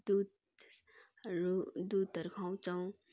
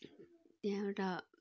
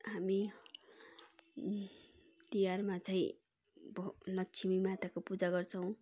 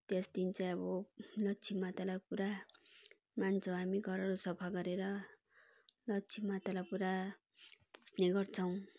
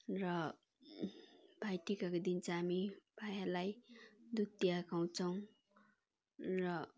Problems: constant background noise, background conversations at intervals